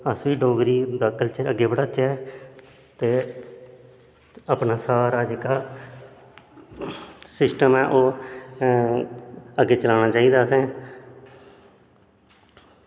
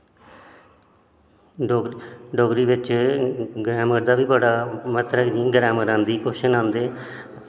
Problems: constant background noise, echo